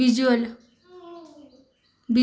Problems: background sounds at intervals, echo